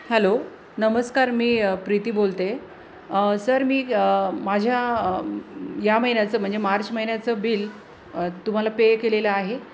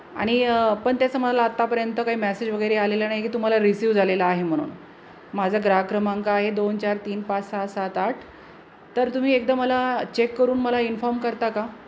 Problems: constant background noise, background conversations at intervals